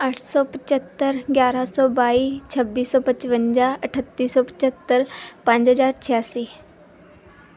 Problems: background conversations at intervals